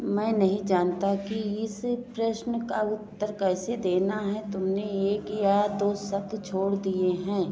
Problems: continuous background conversations